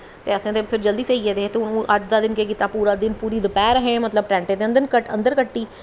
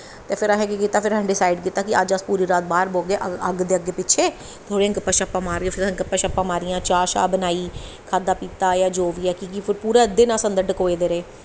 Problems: echo